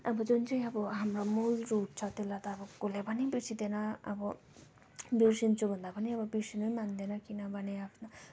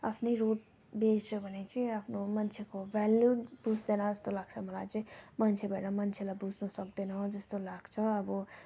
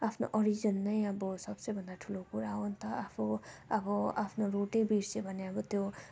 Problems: low volume